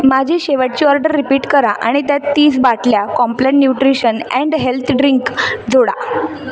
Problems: background sounds at intervals